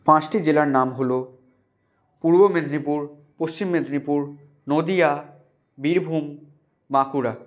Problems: constant background noise